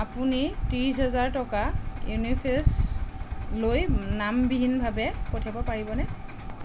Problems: constant background noise